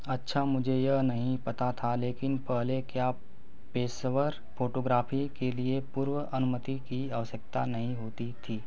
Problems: none marked